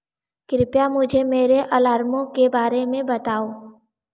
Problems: echo